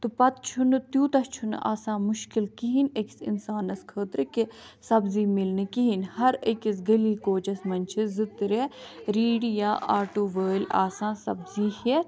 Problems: background conversations at intervals